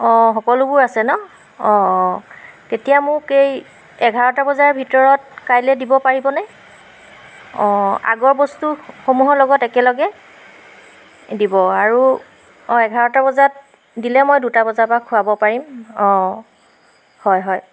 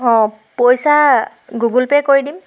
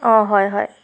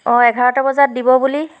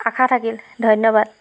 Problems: background sounds at intervals